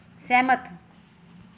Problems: background sounds at intervals